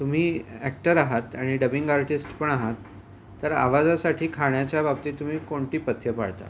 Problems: none marked